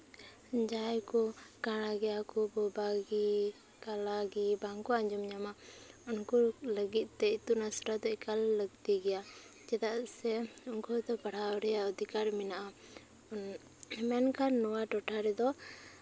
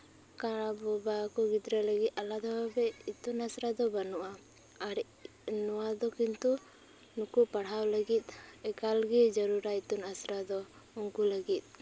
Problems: constant background noise